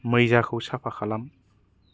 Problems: low volume